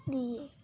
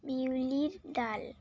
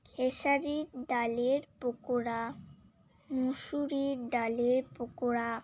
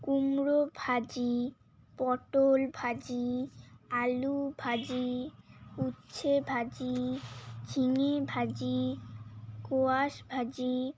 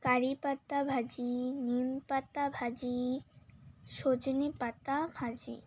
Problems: constant background noise, continuous background conversations